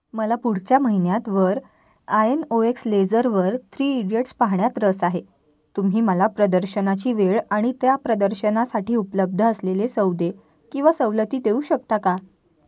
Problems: none marked